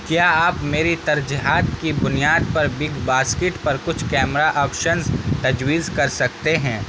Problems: constant background noise